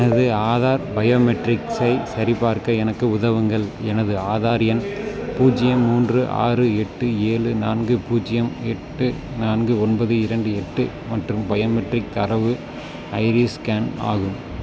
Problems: background sounds at intervals